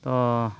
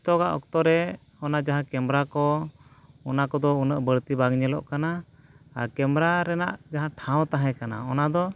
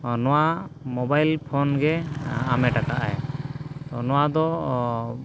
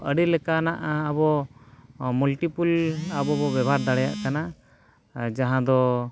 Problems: background sounds at intervals